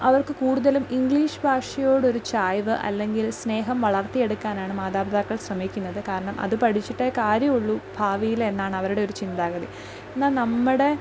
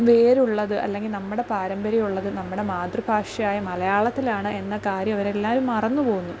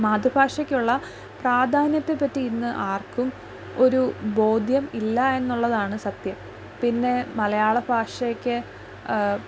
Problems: background sounds at intervals, low volume